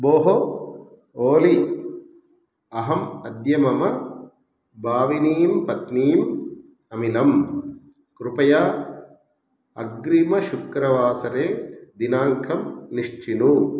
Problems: none marked